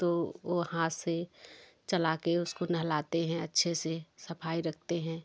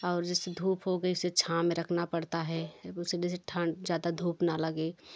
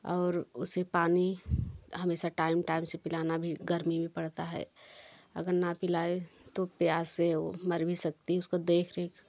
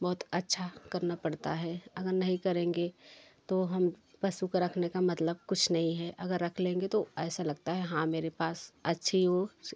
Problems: constant background noise, background conversations at intervals